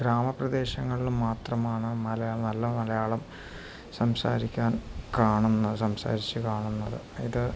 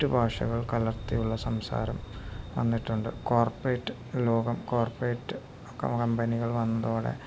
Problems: none marked